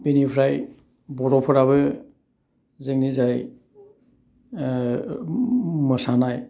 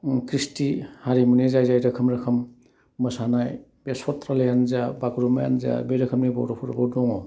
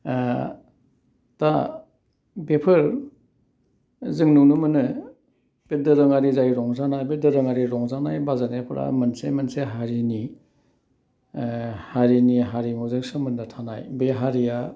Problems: none marked